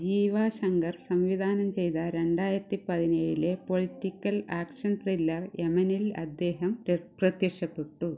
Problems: low volume